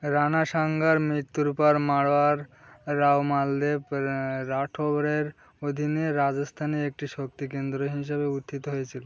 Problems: constant background noise